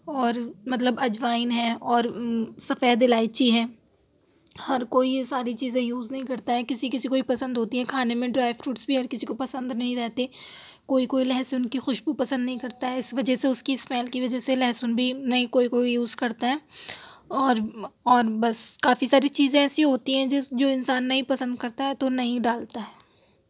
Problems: none marked